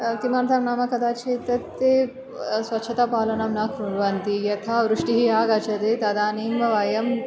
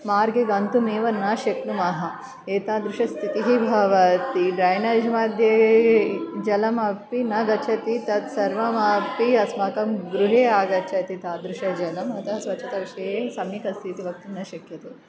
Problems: background sounds at intervals